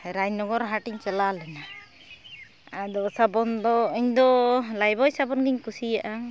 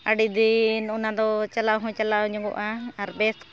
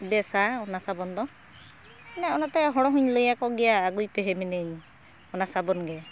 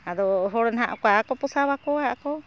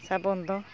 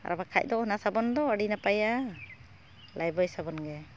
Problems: constant background noise